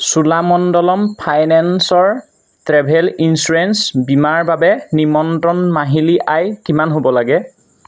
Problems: constant background noise